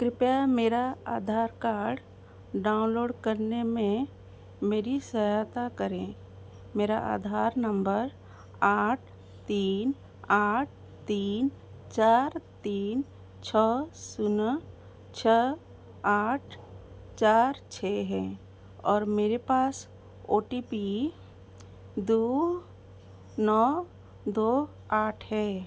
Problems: constant background noise